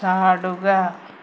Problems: constant background noise